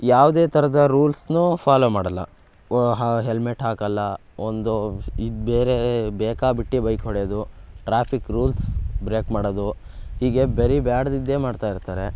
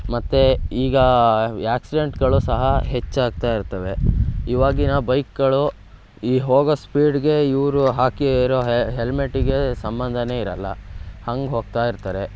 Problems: background sounds at intervals